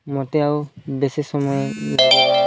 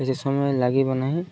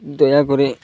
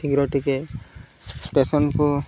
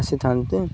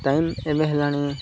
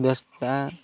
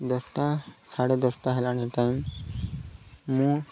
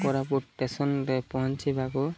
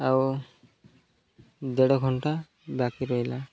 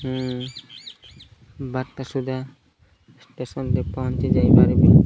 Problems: constant background noise